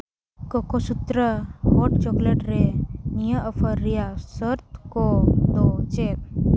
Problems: background sounds at intervals